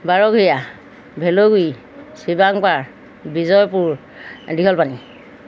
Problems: none marked